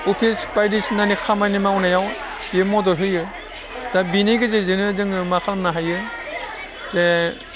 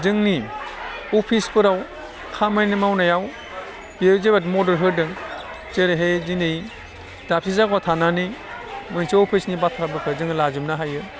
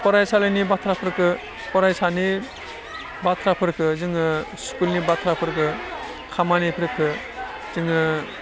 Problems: low volume